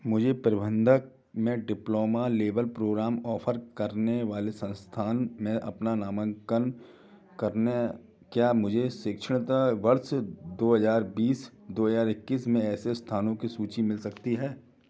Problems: background sounds at intervals, background conversations at intervals